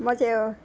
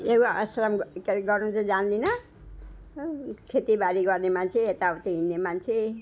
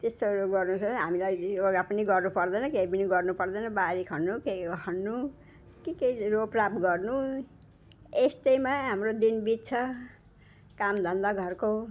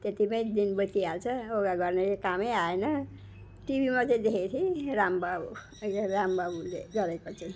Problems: background sounds at intervals